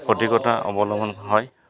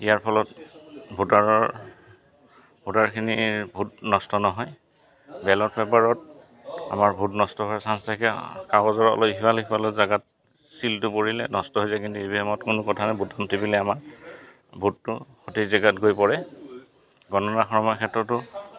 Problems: constant background noise, background conversations at intervals